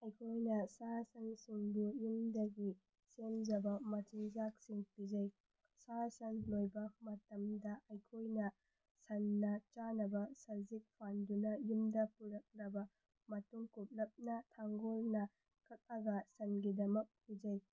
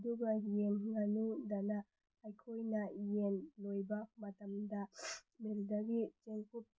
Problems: low volume